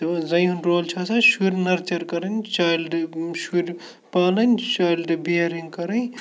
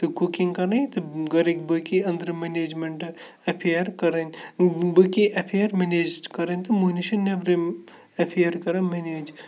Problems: background sounds at intervals, background conversations at intervals